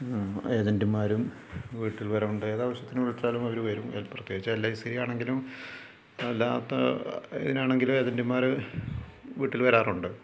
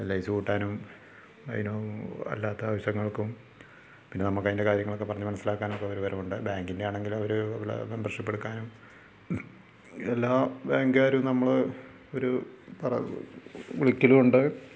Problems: low volume